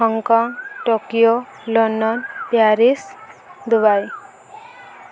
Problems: constant background noise